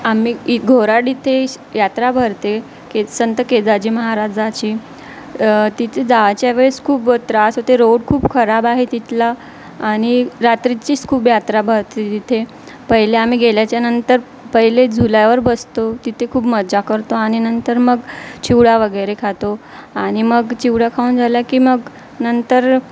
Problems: constant background noise